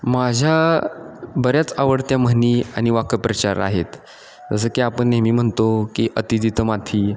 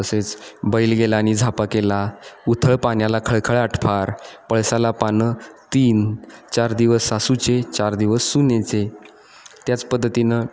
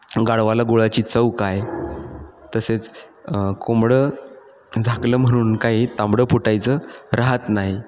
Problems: constant background noise, echo